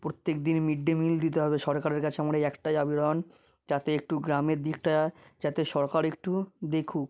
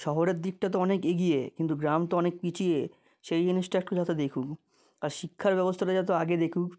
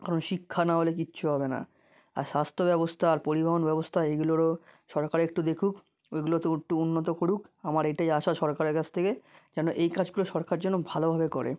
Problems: none marked